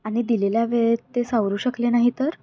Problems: none marked